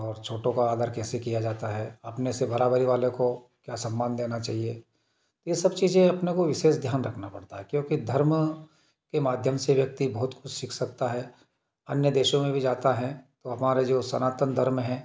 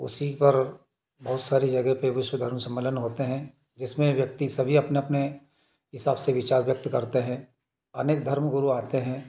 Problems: background sounds at intervals